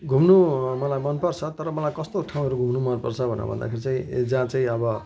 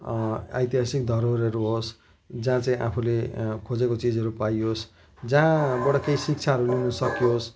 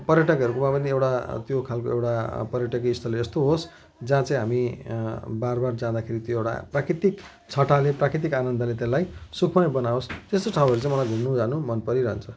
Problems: constant background noise, continuous background conversations